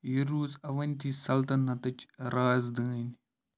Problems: low volume